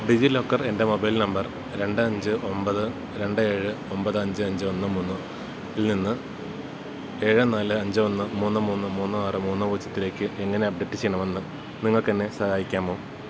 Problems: constant background noise